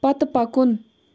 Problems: none marked